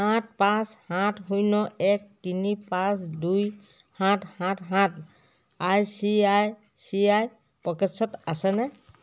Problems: none marked